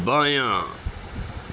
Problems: none marked